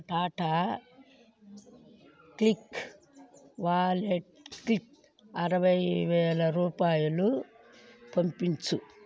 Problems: background sounds at intervals